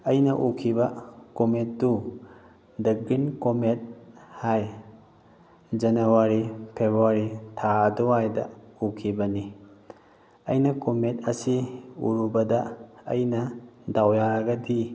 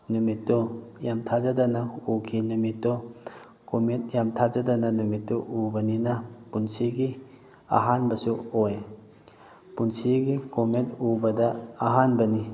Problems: none marked